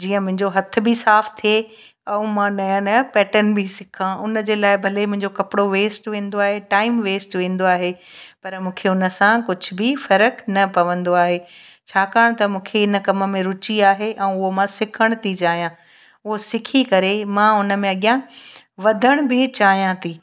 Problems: background sounds at intervals